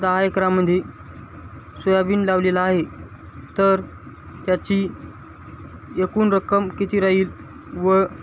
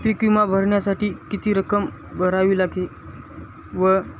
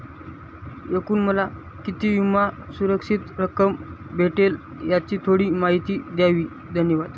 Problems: constant background noise